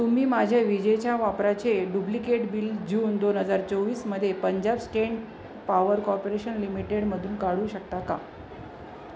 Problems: constant background noise